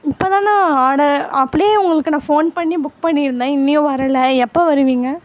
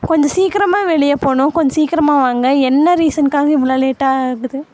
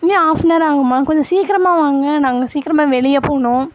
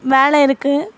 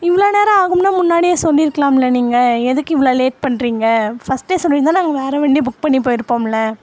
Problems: constant background noise